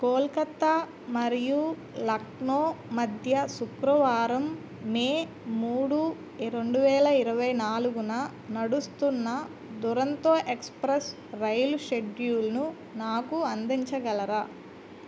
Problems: none marked